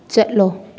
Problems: none marked